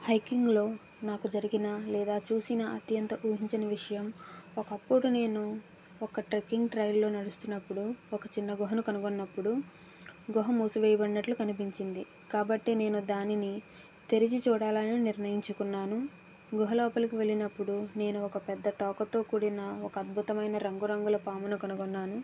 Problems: background sounds at intervals